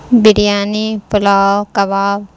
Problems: constant background noise